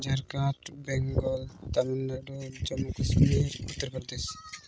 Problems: constant background noise, low volume